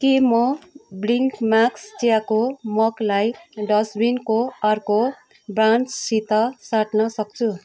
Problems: none marked